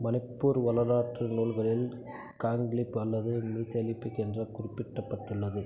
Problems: low volume